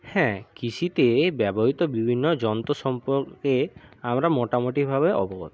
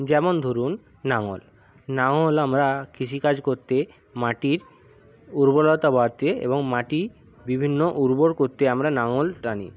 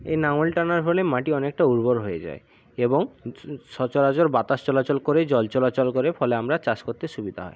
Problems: none marked